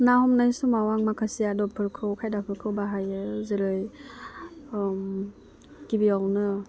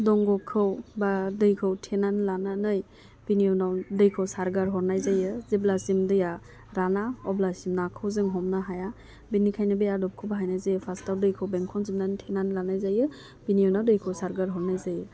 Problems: none marked